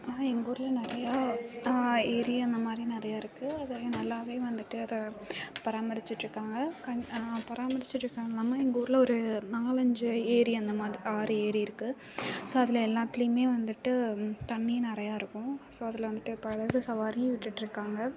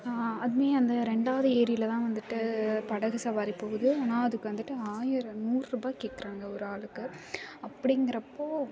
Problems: continuous background conversations